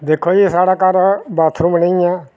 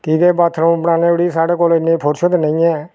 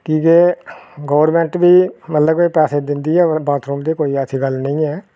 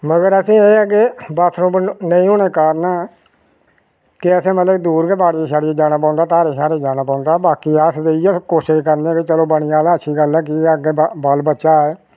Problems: none marked